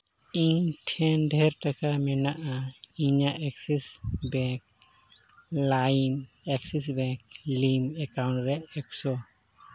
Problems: none marked